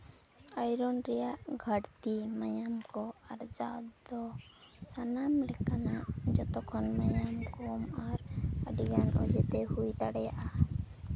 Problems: continuous background conversations